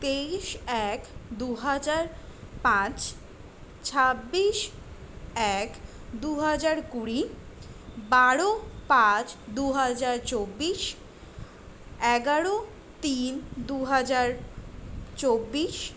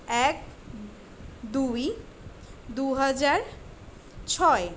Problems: constant background noise